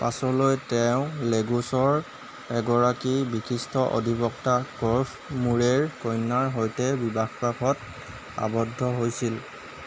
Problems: constant background noise